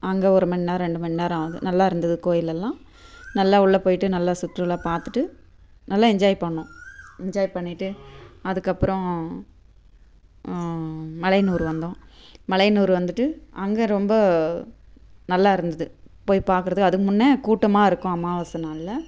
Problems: constant background noise